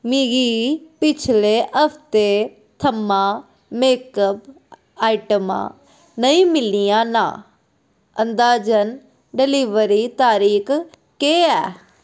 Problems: background sounds at intervals